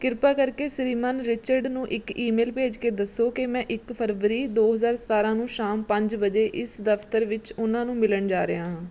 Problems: none marked